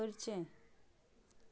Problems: low volume